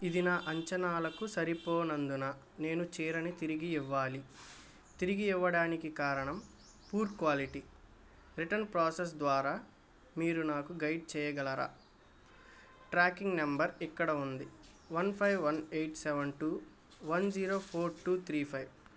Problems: none marked